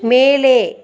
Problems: continuous background conversations